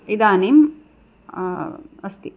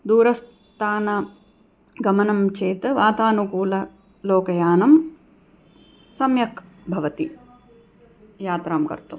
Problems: background conversations at intervals